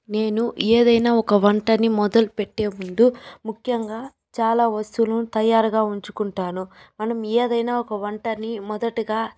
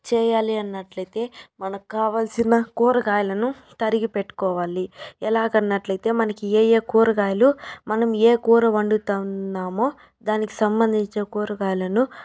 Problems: none marked